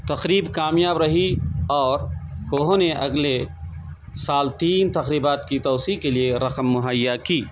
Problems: constant background noise